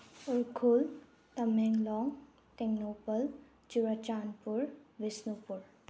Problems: none marked